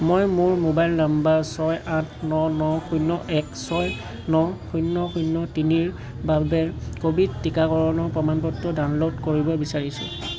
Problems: constant background noise